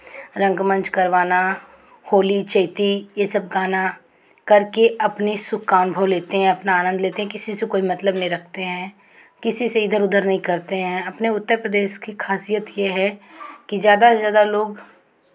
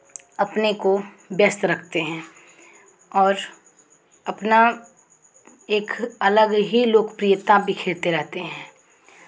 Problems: none marked